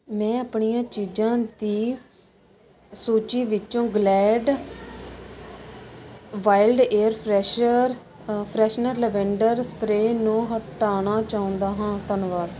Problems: constant background noise